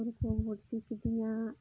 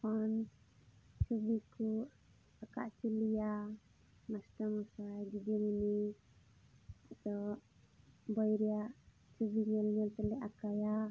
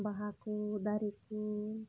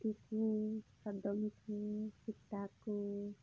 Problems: background sounds at intervals, low volume